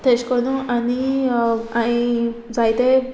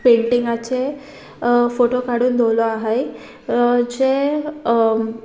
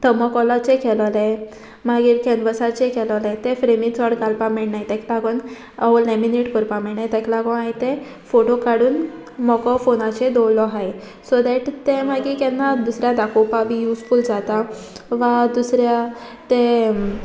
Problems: constant background noise